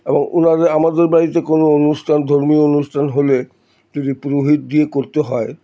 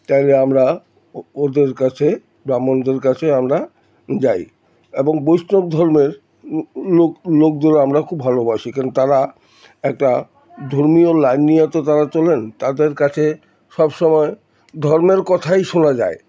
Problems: background sounds at intervals, background conversations at intervals